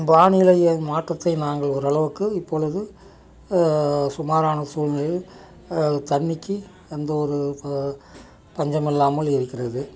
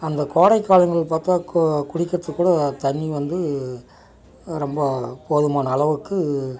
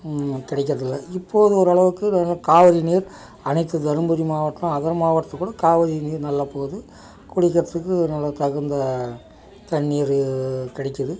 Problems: none marked